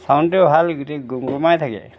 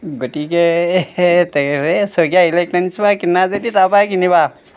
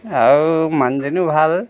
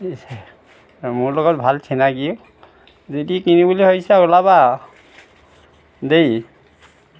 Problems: none marked